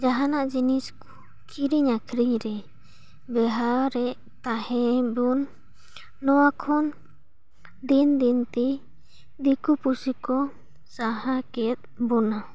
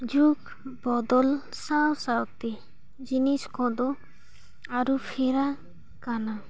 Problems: none marked